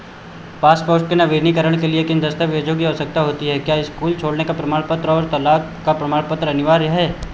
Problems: echo